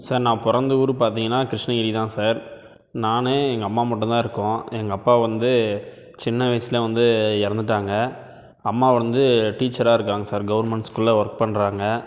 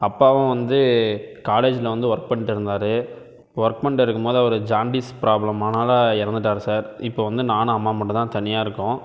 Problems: none marked